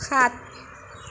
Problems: constant background noise